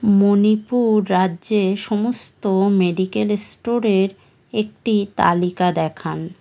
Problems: none marked